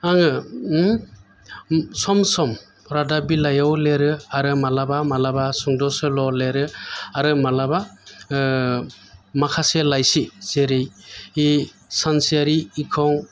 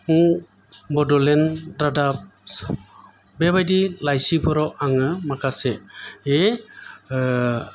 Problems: background sounds at intervals